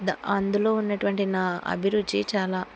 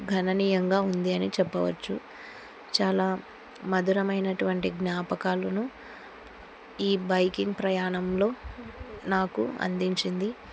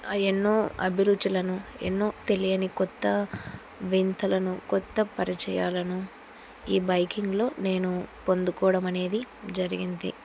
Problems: none marked